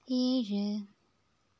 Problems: background sounds at intervals, low volume